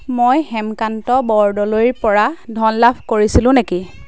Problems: background conversations at intervals